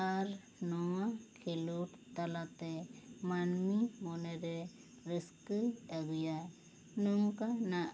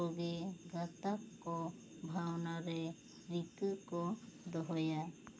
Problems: constant background noise